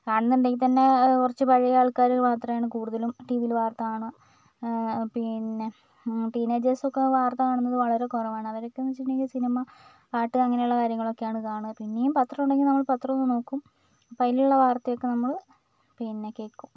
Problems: none marked